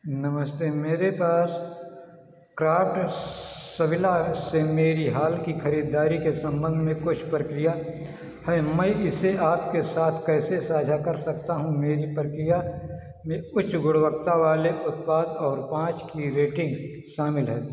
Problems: echo, low volume